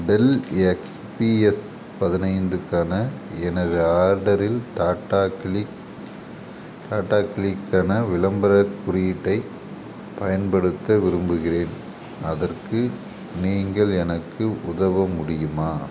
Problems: background sounds at intervals